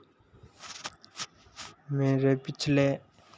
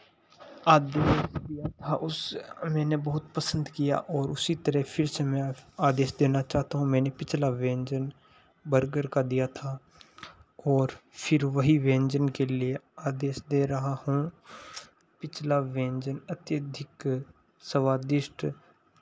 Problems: constant background noise